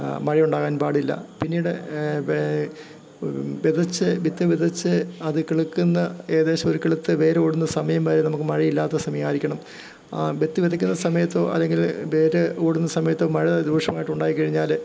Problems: none marked